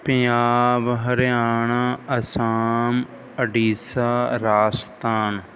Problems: background sounds at intervals